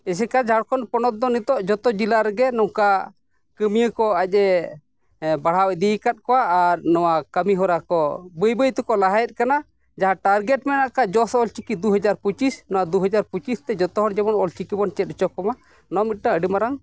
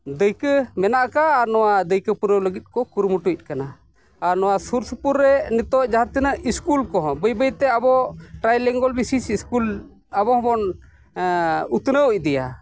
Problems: none marked